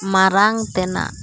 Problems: constant background noise